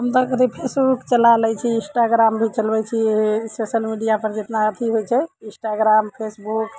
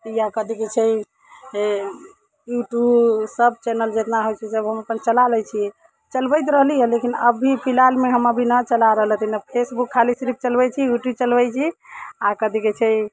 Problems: background sounds at intervals